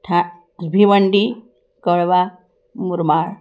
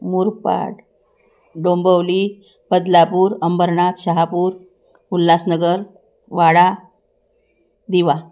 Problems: background sounds at intervals